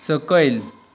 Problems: constant background noise